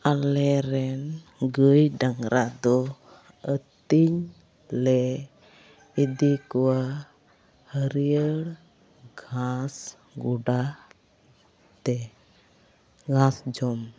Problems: background sounds at intervals, continuous background conversations